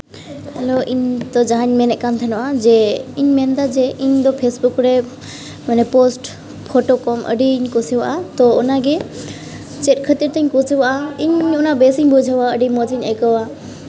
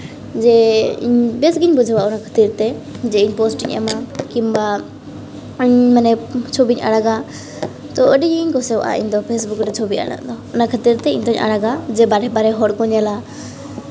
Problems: background sounds at intervals